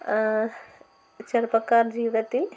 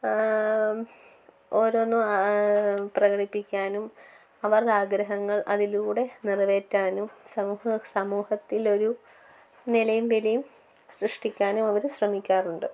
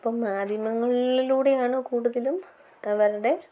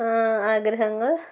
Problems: constant background noise, low volume